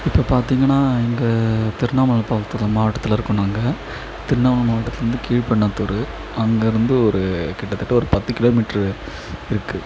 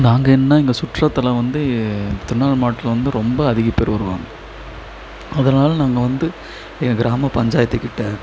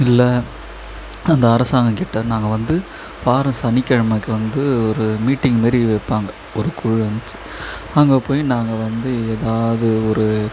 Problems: echo